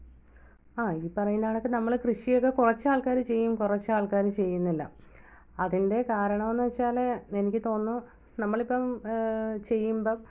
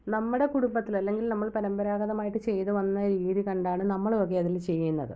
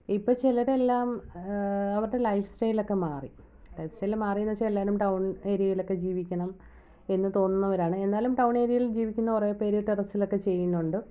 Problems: low volume